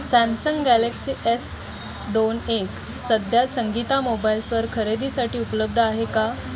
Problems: constant background noise, continuous background conversations